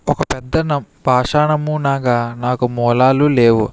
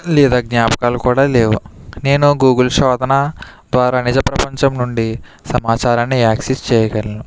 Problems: background sounds at intervals